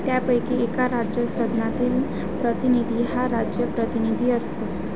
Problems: constant background noise